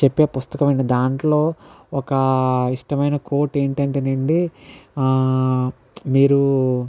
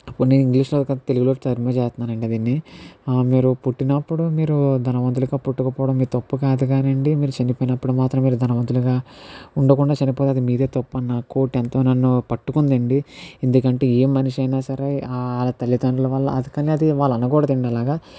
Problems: background sounds at intervals